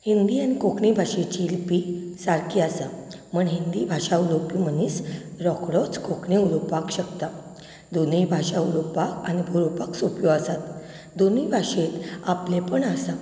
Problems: background sounds at intervals